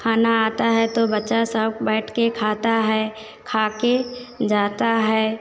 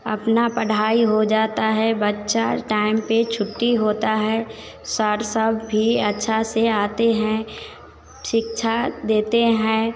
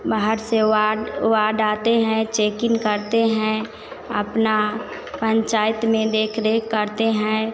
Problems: constant background noise